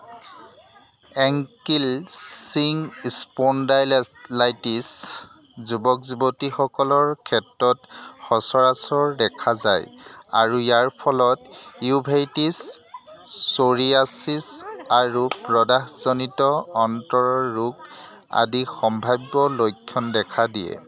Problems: constant background noise, background conversations at intervals